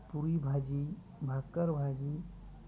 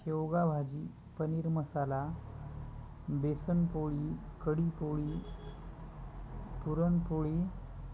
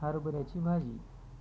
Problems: constant background noise, continuous background conversations